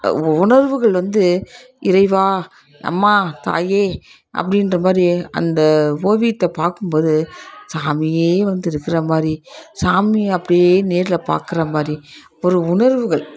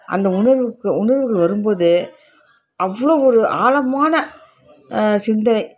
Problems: constant background noise, continuous background conversations